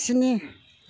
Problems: constant background noise